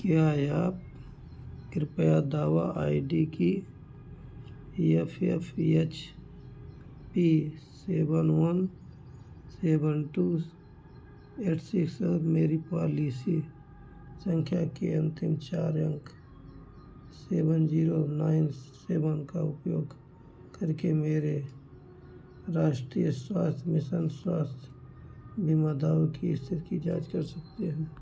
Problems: constant background noise